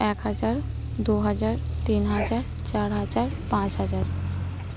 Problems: constant background noise